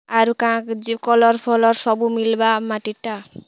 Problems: none marked